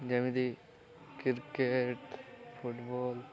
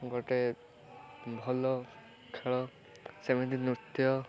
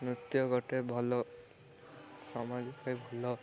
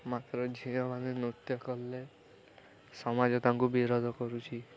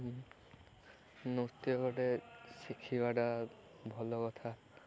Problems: constant background noise, continuous background conversations